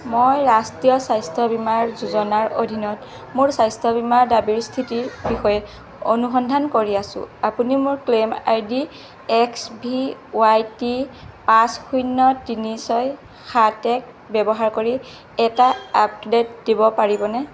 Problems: constant background noise